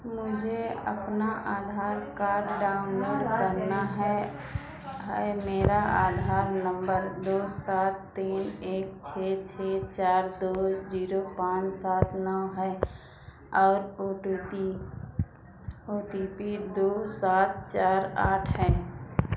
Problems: constant background noise, echo